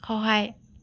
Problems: none marked